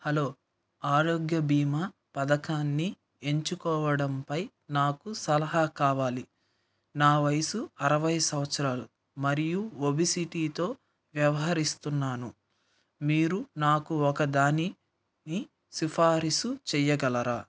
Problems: none marked